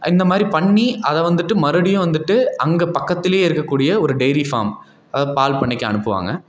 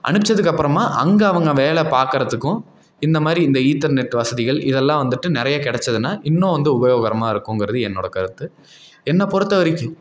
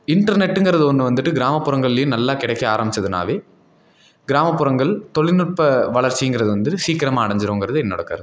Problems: none marked